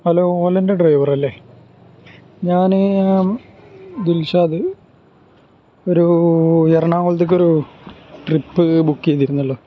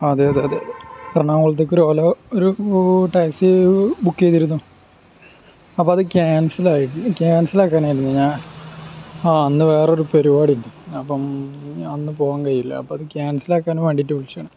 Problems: background sounds at intervals